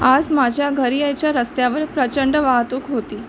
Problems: none marked